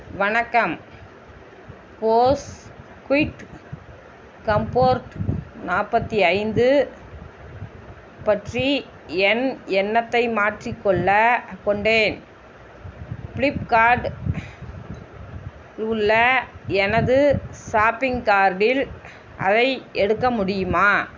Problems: constant background noise